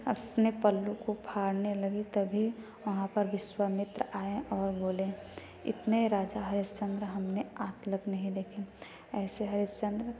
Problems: none marked